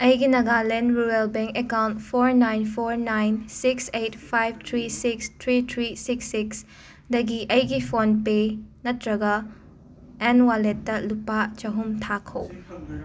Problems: constant background noise, background conversations at intervals